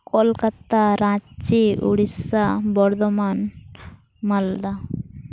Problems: constant background noise